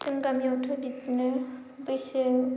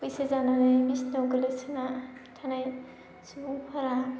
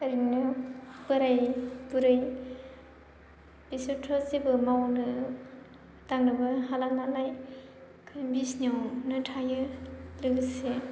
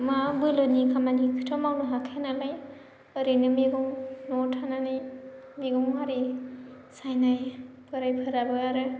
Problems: low volume